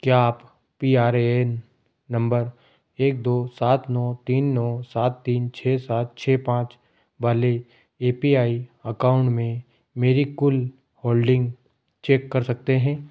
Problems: background sounds at intervals